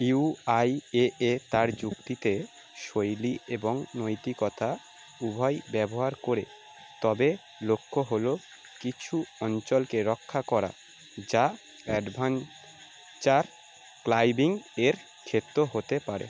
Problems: none marked